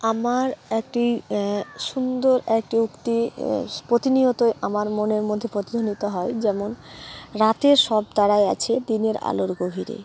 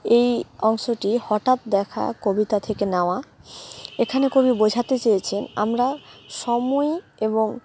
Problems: none marked